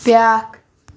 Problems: constant background noise